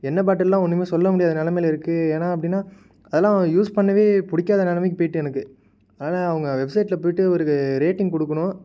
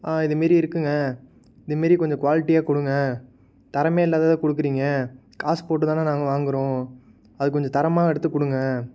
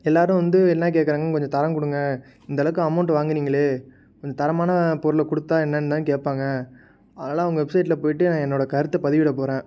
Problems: none marked